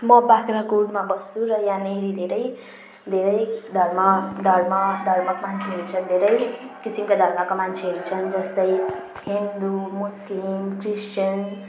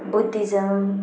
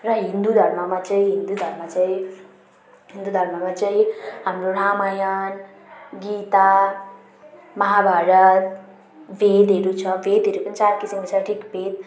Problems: none marked